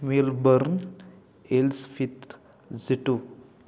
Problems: background sounds at intervals